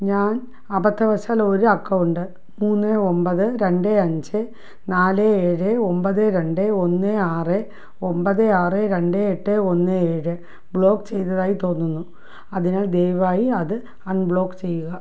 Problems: low volume